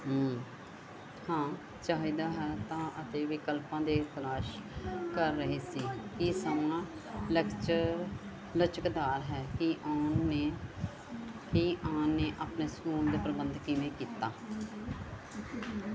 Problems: continuous background conversations